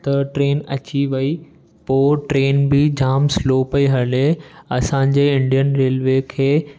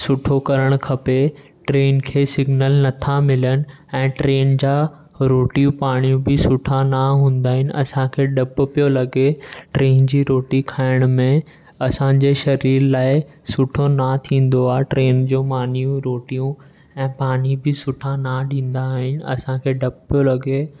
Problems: background sounds at intervals